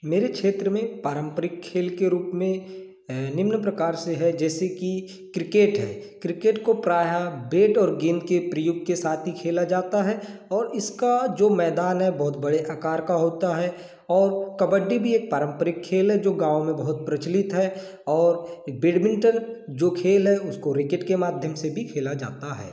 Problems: none marked